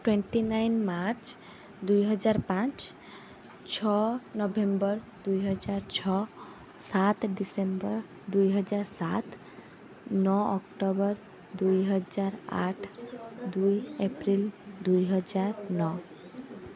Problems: continuous background conversations